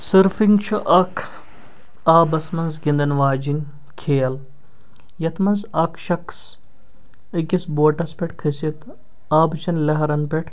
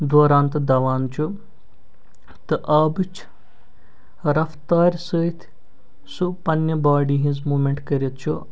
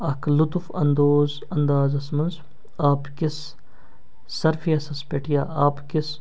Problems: none marked